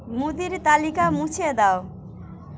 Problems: constant background noise, background conversations at intervals